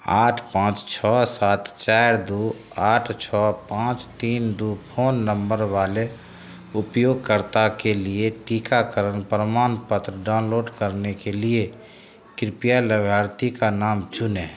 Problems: none marked